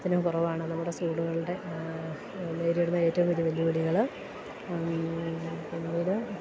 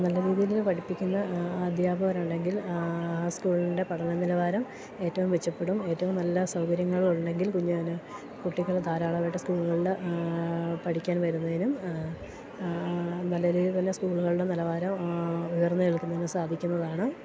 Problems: constant background noise